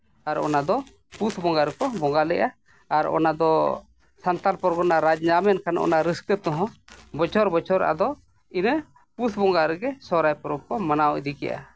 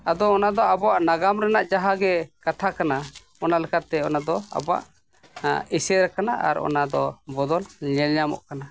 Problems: background sounds at intervals